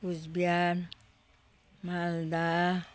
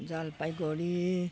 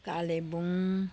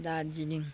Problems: none marked